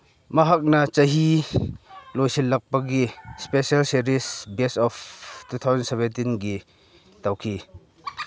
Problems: background sounds at intervals